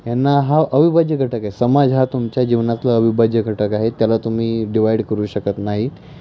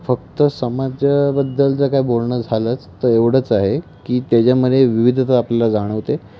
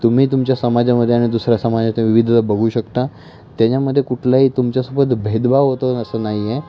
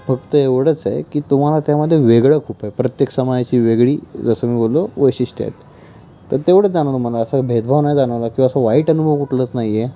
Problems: none marked